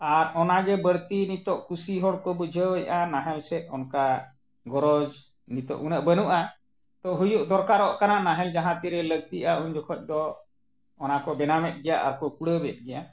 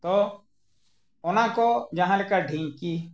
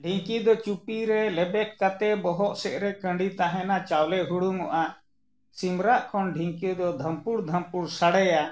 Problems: none marked